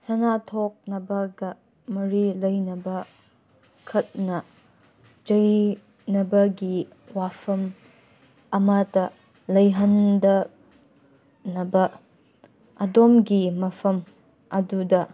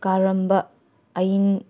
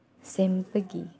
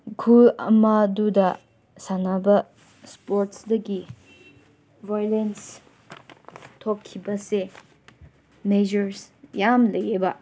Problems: background sounds at intervals